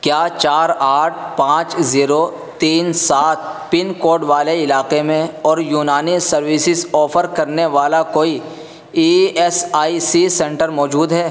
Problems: constant background noise